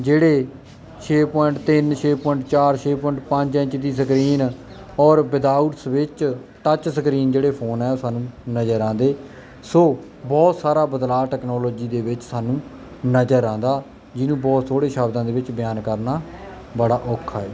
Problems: none marked